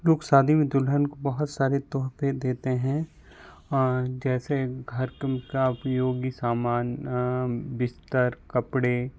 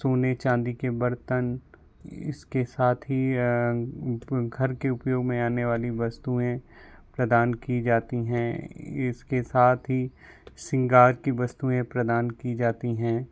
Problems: none marked